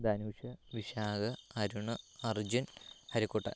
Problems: low volume